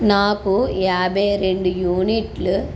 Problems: background sounds at intervals